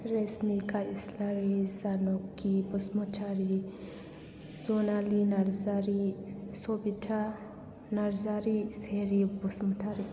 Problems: background sounds at intervals